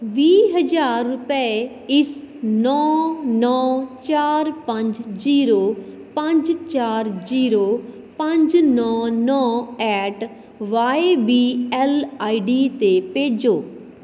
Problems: none marked